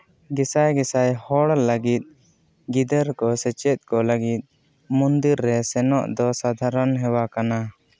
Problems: none marked